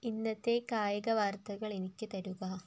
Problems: low volume